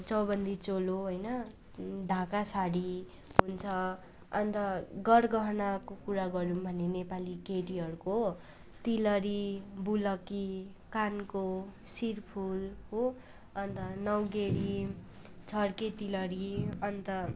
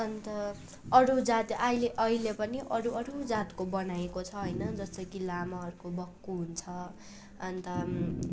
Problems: constant background noise, continuous background conversations